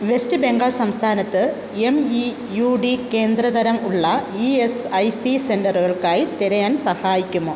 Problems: constant background noise